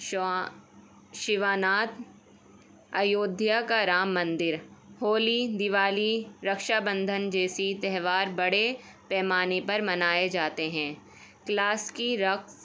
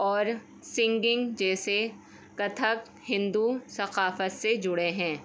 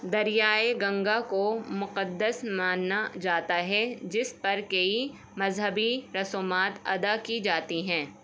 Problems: constant background noise